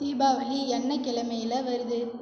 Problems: echo